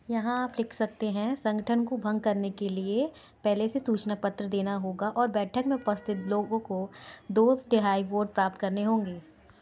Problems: background sounds at intervals